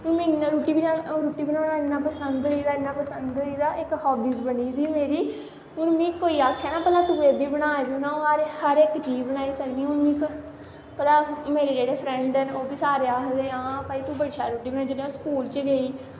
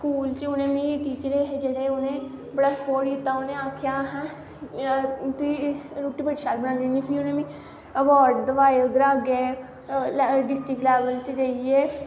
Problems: constant background noise